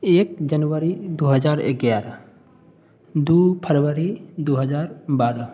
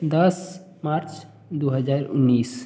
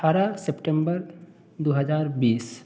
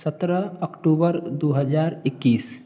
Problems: none marked